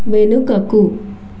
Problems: constant background noise